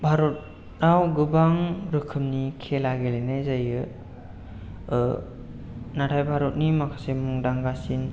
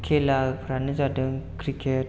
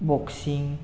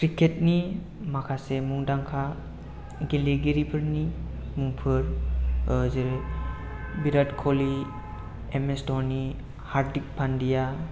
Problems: low volume